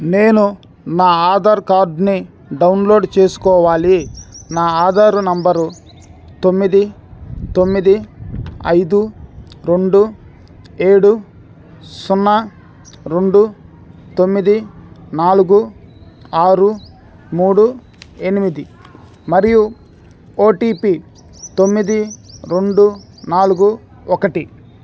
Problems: background sounds at intervals